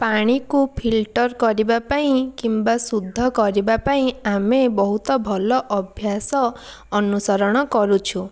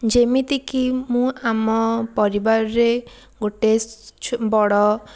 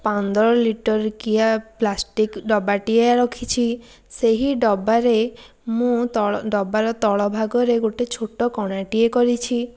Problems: none marked